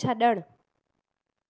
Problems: none marked